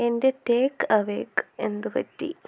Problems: low volume